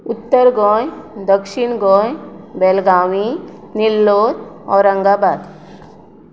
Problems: constant background noise